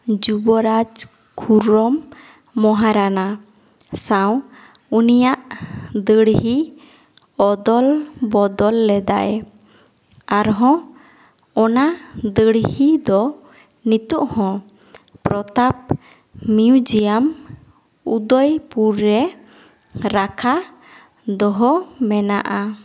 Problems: echo